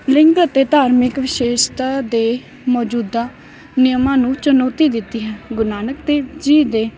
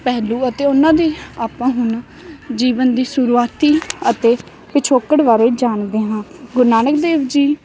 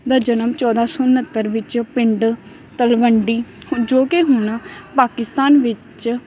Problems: none marked